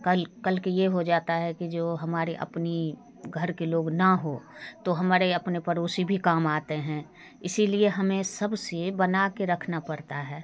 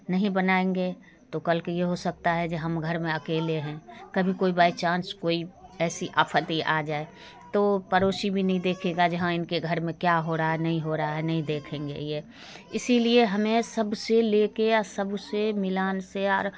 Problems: constant background noise, continuous background conversations